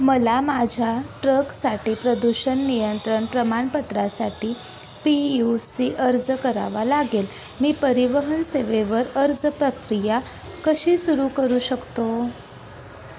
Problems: constant background noise